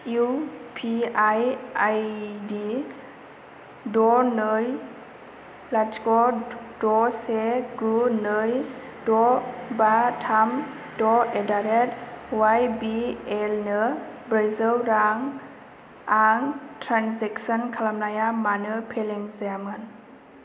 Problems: constant background noise